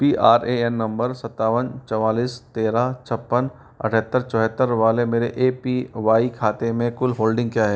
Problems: constant background noise